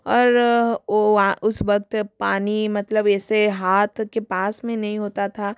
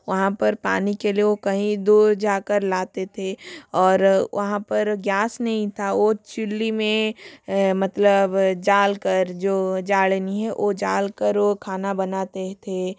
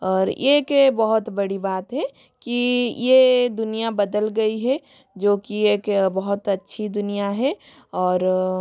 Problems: none marked